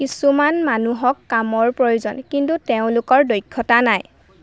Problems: constant background noise